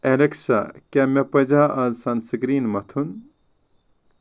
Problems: none marked